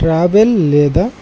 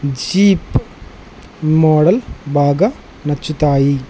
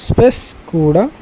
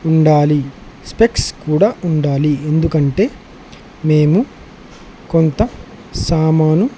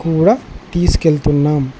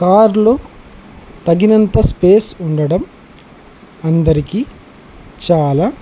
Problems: constant background noise